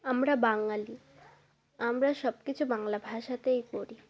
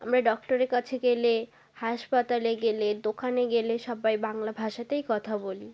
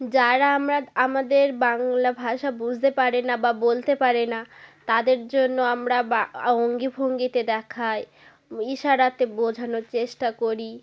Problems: continuous background conversations